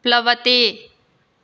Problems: none marked